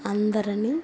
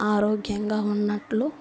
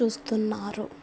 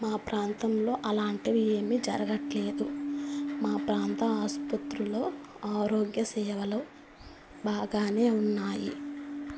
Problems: constant background noise